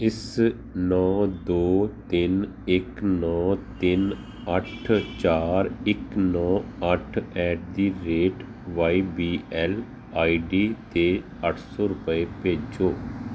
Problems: none marked